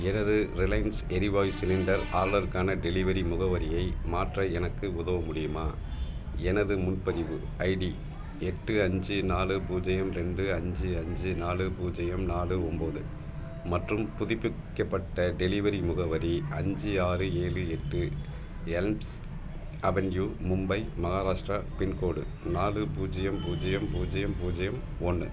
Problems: background sounds at intervals